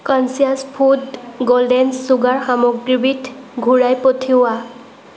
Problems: background sounds at intervals